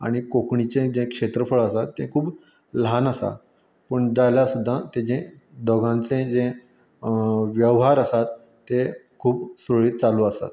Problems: background sounds at intervals